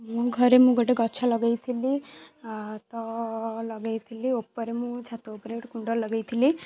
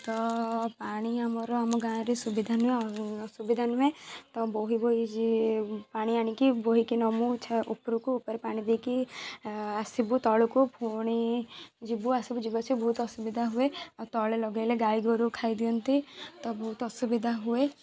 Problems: constant background noise, continuous background conversations